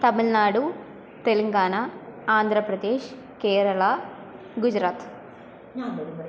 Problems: none marked